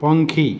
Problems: constant background noise